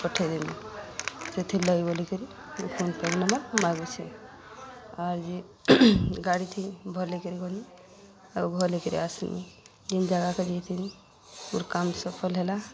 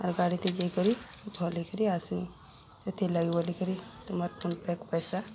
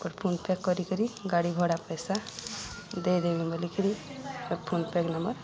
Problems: constant background noise